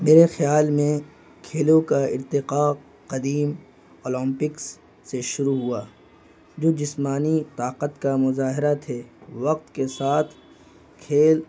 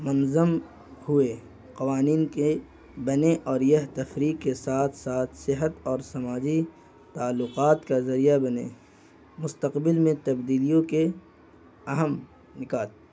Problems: constant background noise